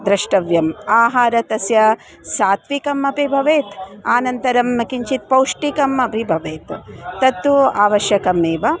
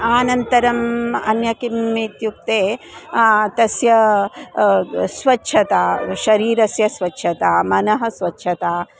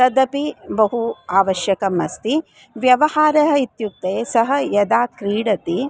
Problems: constant background noise